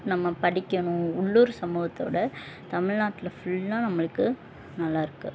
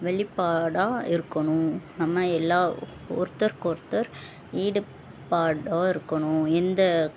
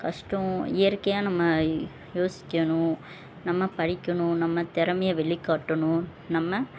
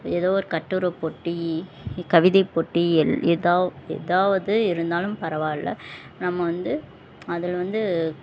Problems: constant background noise